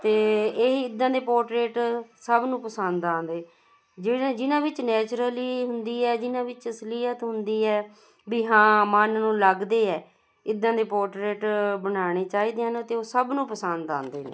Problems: constant background noise